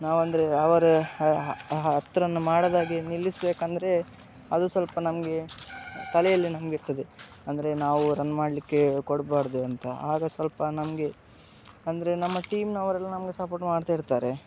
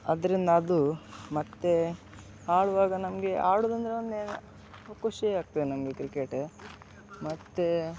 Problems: background sounds at intervals